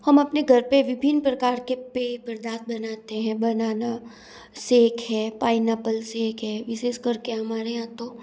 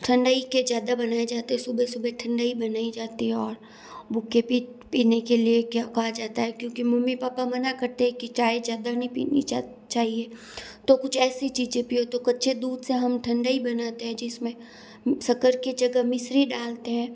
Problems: none marked